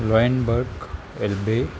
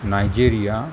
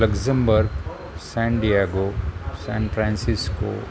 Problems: constant background noise, background conversations at intervals